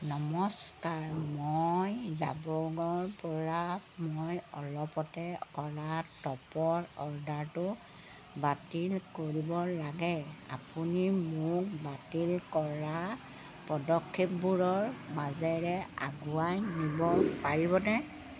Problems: none marked